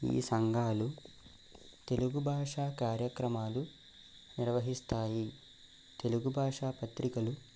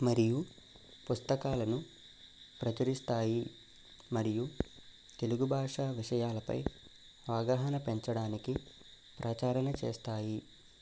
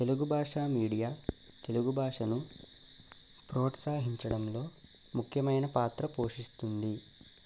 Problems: none marked